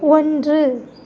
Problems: none marked